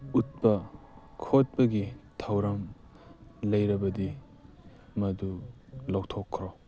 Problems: background sounds at intervals